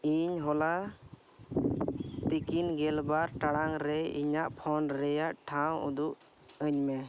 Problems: none marked